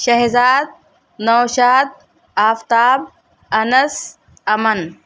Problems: none marked